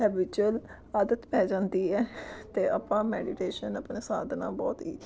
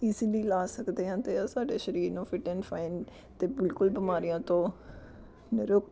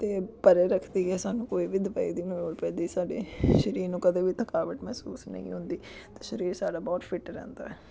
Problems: continuous background conversations